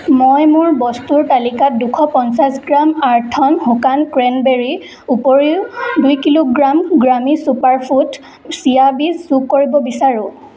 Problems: background sounds at intervals, echo